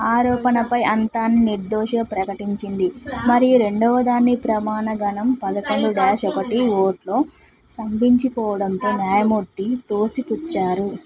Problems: background conversations at intervals